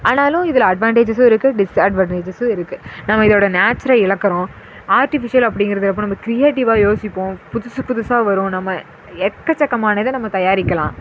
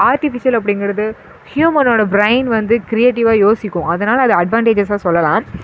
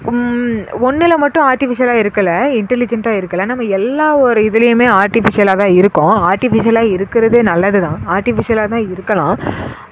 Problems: echo